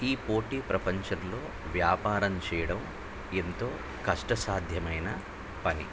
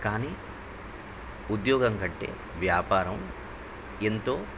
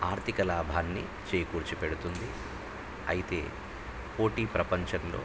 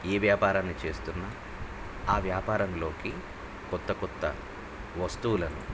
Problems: low volume